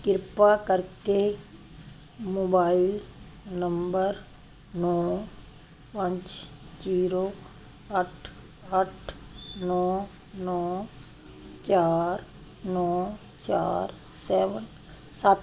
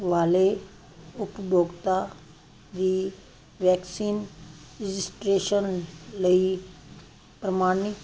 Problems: constant background noise